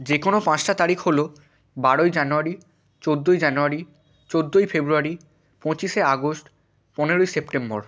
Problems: constant background noise